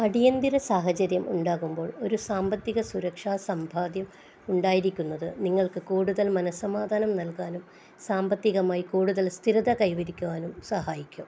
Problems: constant background noise, low volume